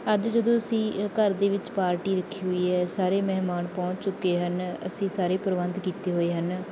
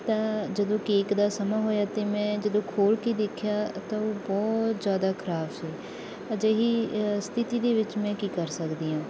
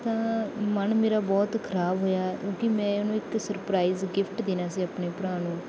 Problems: none marked